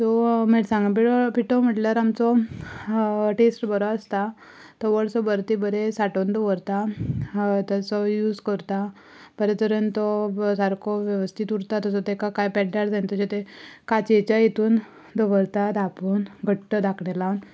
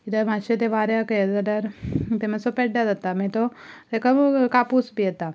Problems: background sounds at intervals